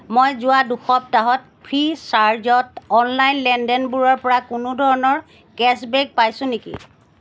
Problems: background sounds at intervals